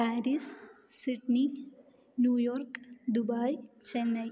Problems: low volume